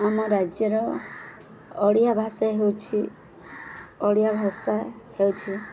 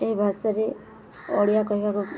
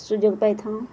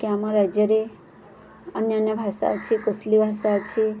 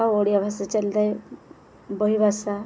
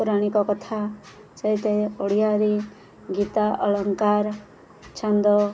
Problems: none marked